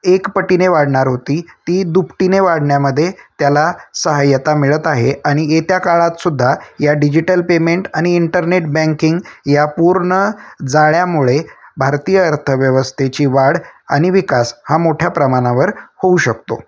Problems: constant background noise